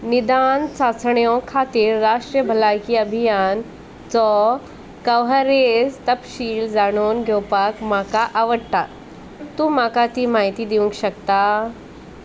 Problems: none marked